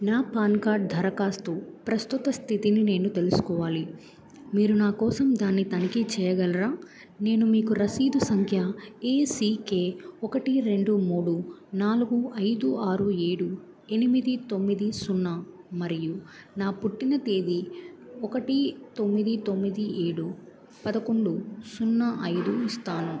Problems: background sounds at intervals